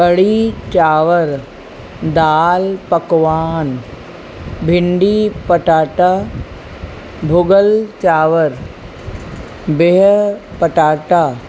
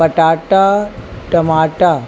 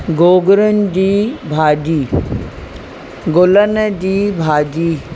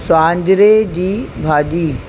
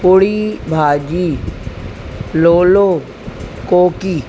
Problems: constant background noise